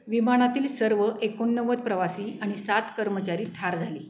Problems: constant background noise, background conversations at intervals